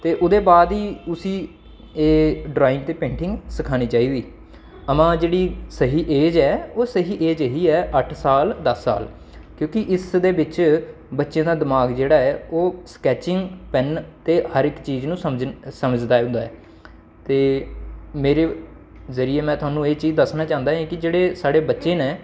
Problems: constant background noise